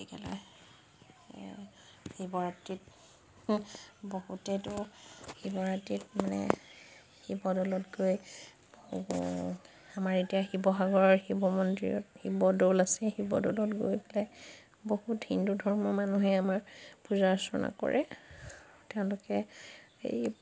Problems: background sounds at intervals